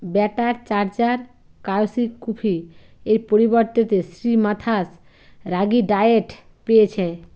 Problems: constant background noise, low volume